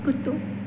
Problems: constant background noise, echo